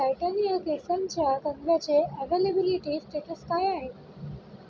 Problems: background sounds at intervals